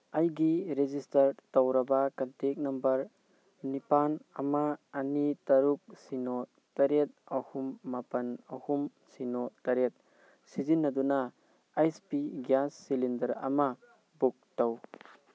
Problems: background conversations at intervals